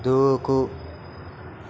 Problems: constant background noise